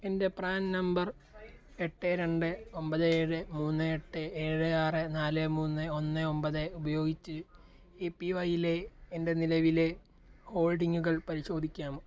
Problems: low volume